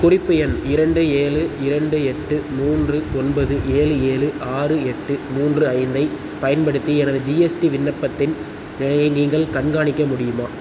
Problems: constant background noise